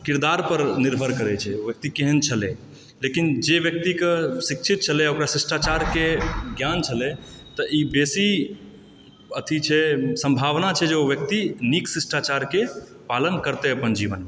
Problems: background sounds at intervals